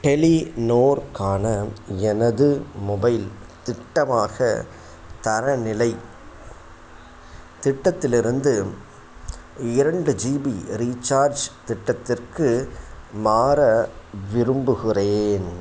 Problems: constant background noise